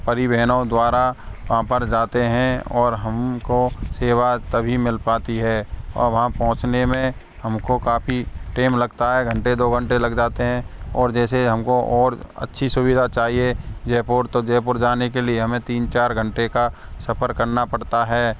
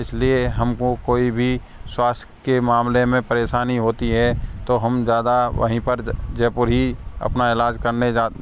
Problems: none marked